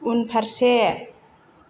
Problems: constant background noise